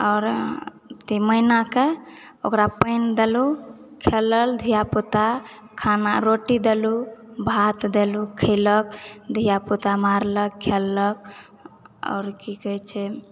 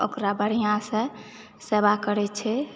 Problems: background conversations at intervals